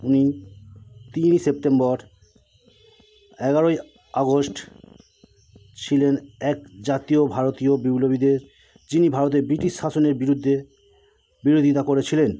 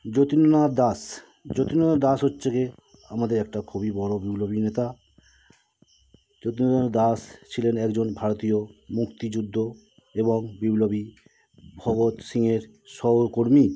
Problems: none marked